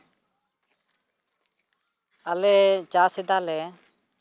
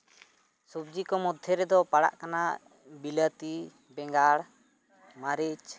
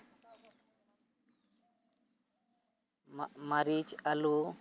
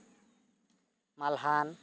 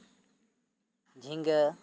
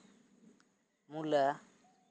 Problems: none marked